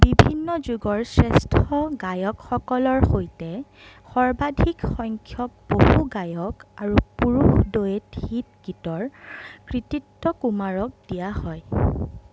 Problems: background sounds at intervals